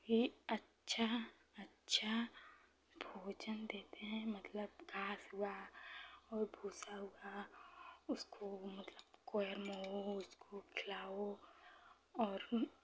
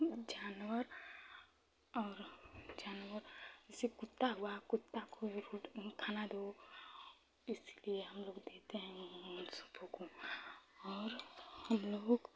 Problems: low volume